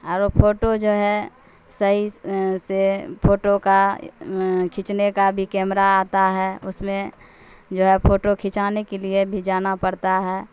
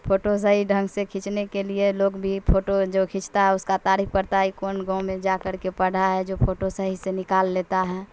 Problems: constant background noise